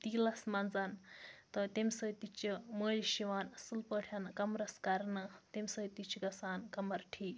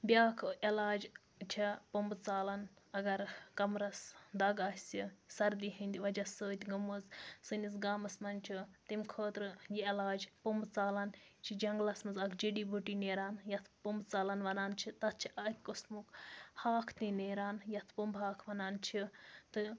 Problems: background conversations at intervals